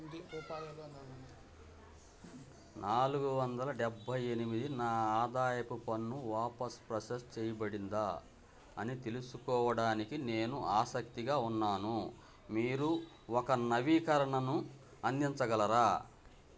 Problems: none marked